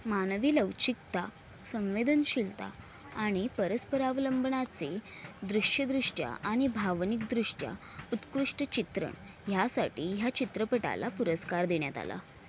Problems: background sounds at intervals